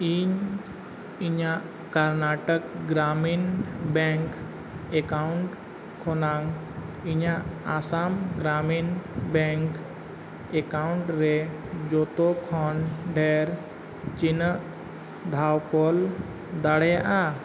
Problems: constant background noise